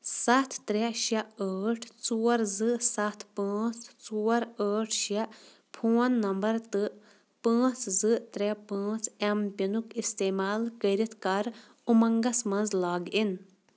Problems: background sounds at intervals